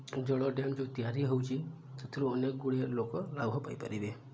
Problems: low volume